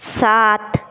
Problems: none marked